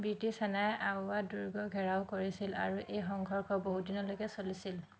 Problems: none marked